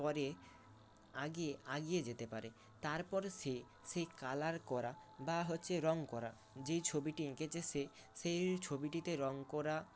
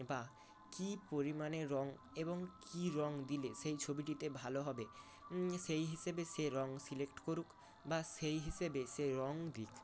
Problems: constant background noise